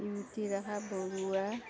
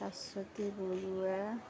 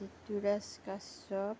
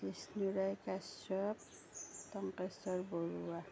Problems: continuous background conversations, low volume